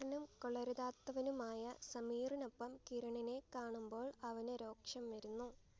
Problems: low volume